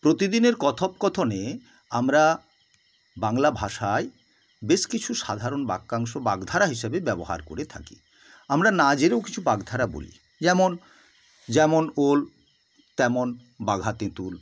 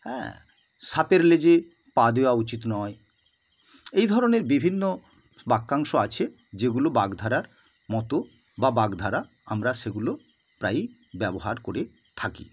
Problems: constant background noise